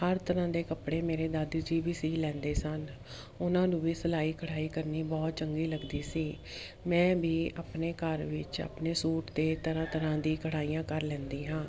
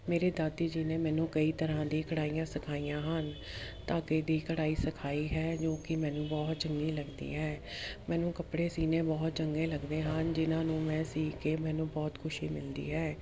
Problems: constant background noise